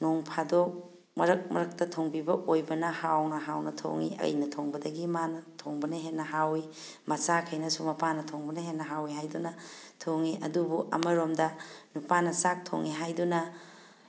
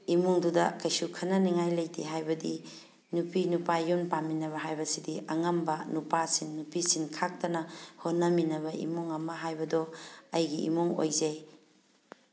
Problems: none marked